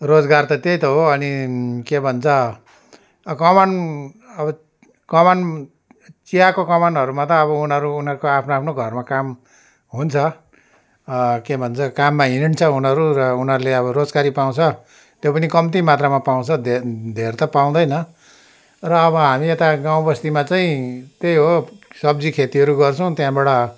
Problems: constant background noise